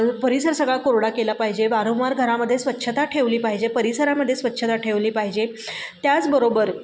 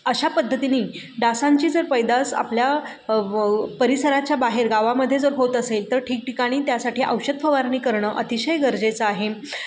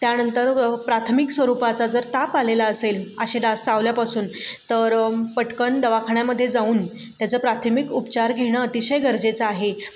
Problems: background sounds at intervals